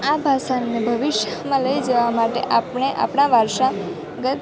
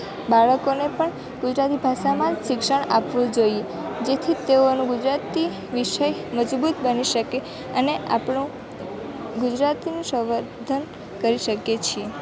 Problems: constant background noise